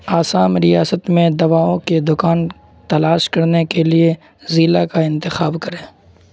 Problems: constant background noise